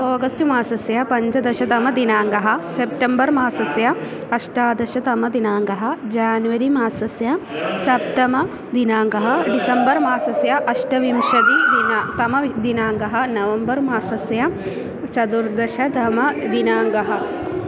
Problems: constant background noise